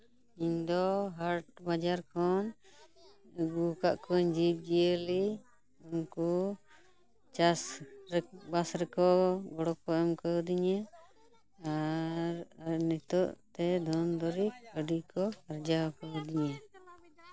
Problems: continuous background conversations